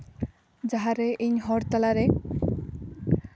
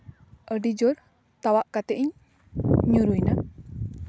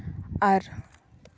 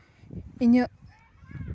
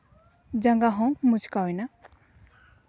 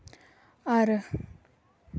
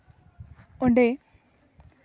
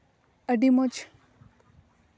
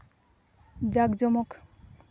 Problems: background sounds at intervals